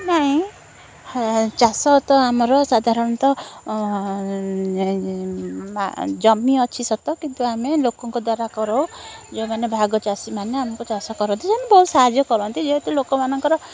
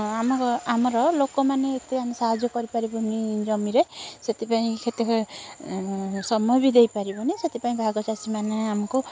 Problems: constant background noise, continuous background conversations